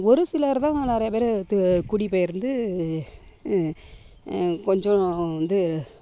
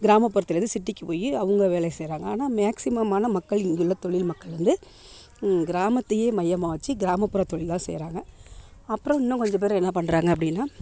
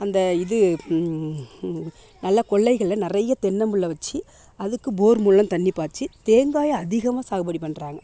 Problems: none marked